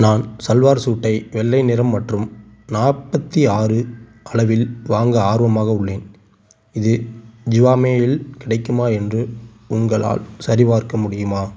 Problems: none marked